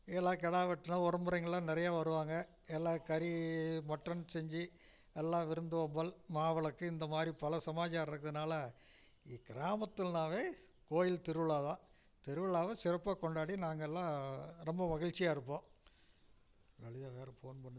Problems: low volume